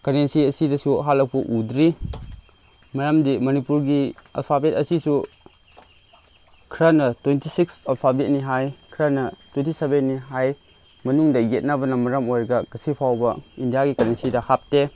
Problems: constant background noise, background conversations at intervals